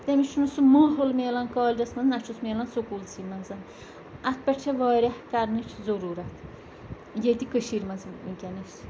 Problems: constant background noise